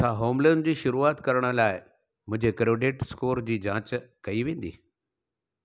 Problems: none marked